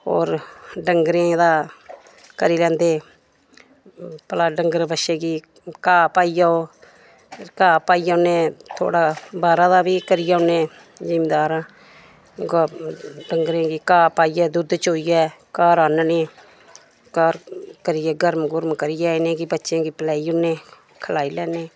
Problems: none marked